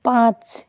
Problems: constant background noise